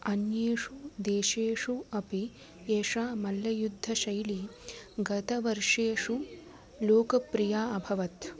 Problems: constant background noise